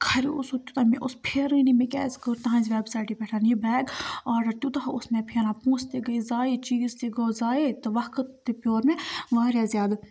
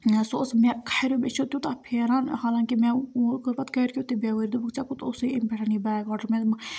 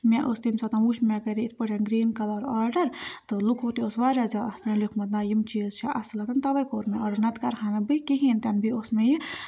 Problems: background sounds at intervals